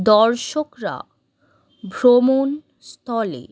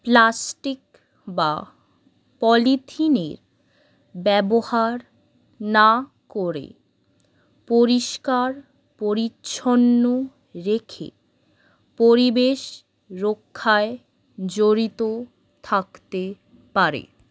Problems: none marked